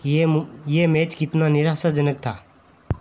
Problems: constant background noise